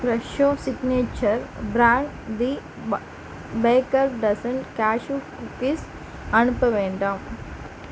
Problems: background sounds at intervals